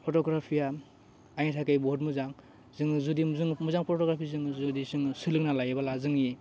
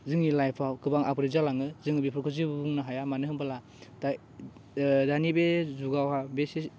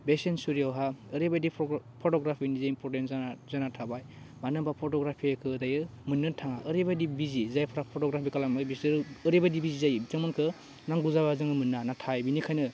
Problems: none marked